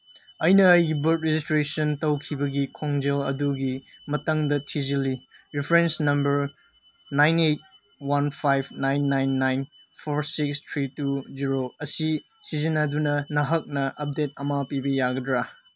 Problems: none marked